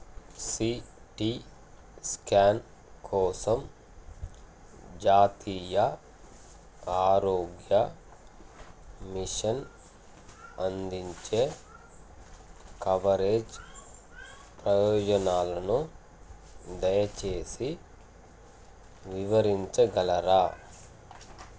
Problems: constant background noise